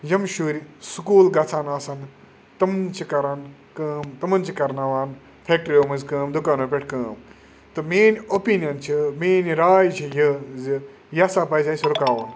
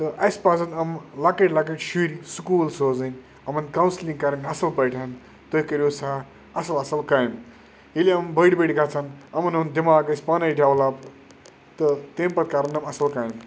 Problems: none marked